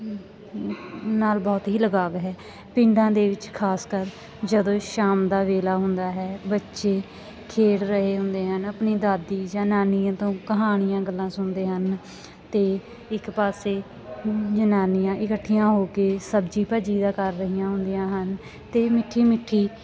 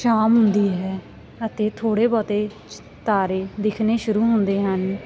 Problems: none marked